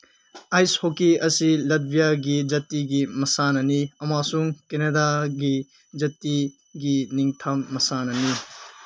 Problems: background sounds at intervals